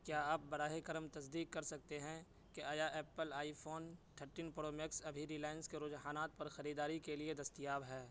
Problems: constant background noise, low volume